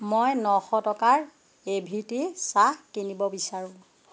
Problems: background sounds at intervals